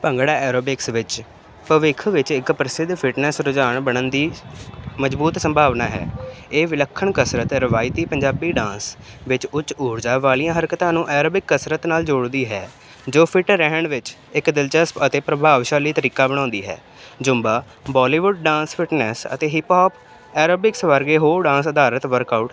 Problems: none marked